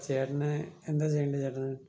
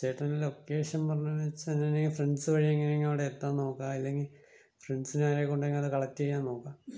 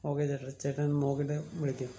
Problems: low volume